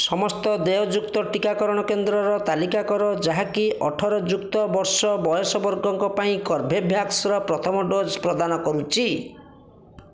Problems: continuous background conversations